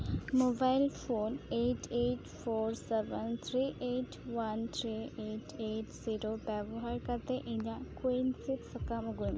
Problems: none marked